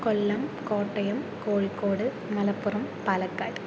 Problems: constant background noise, low volume